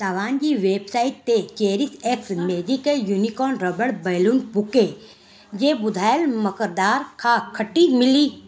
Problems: constant background noise